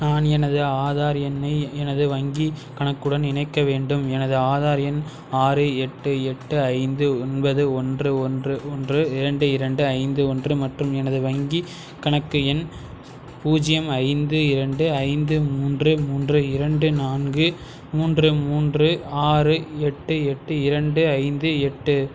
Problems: constant background noise